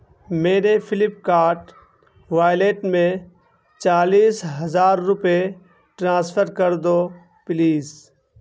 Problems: constant background noise